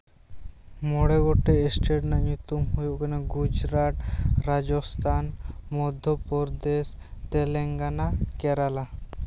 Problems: none marked